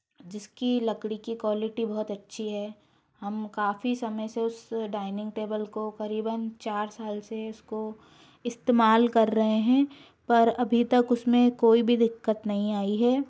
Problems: constant background noise